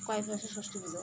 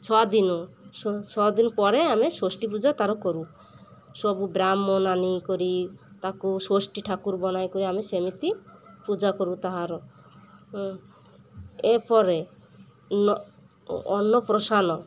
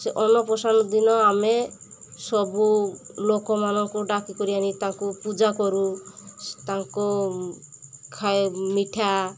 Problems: constant background noise, continuous background conversations